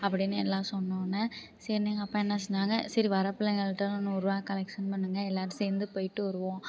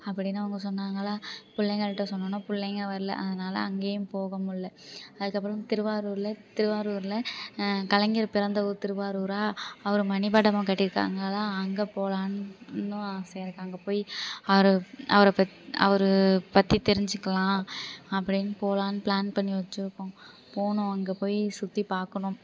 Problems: background sounds at intervals, background conversations at intervals